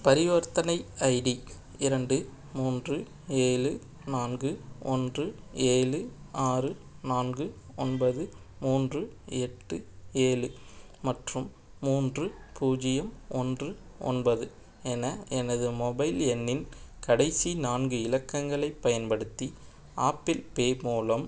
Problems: none marked